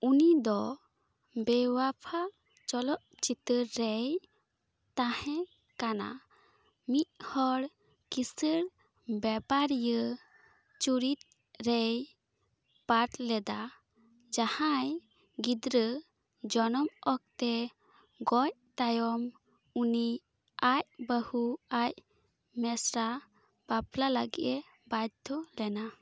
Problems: none marked